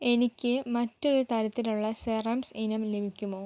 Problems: none marked